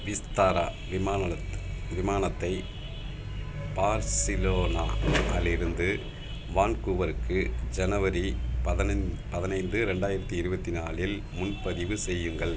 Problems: none marked